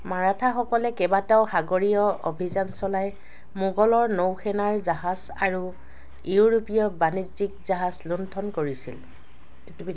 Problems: background sounds at intervals, background conversations at intervals